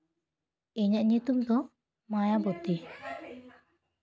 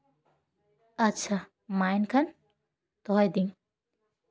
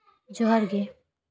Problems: background conversations at intervals